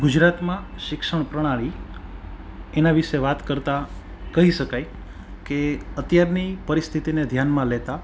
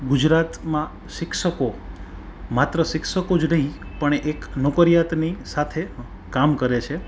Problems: background sounds at intervals